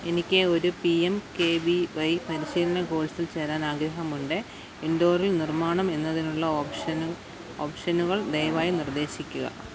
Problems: background sounds at intervals